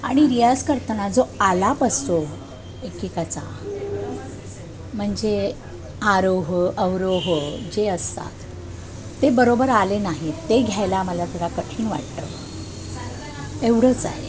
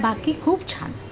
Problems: constant background noise, continuous background conversations